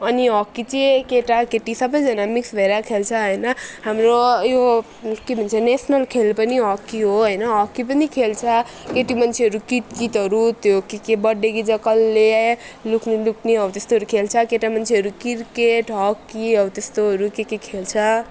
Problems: background sounds at intervals